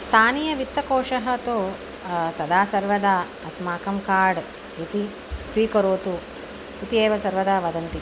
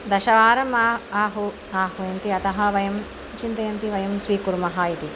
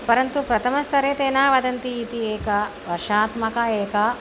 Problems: constant background noise